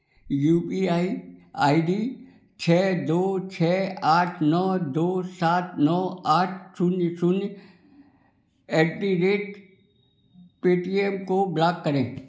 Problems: background sounds at intervals